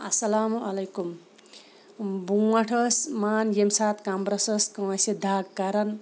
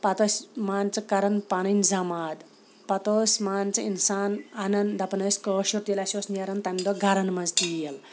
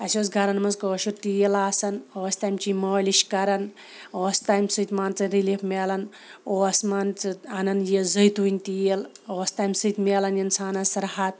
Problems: background sounds at intervals